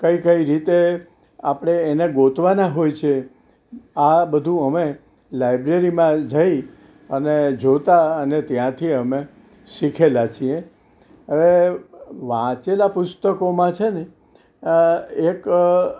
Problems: none marked